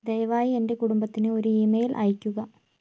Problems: none marked